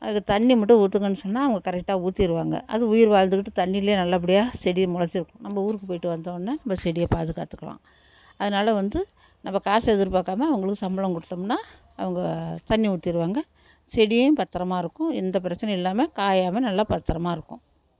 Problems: none marked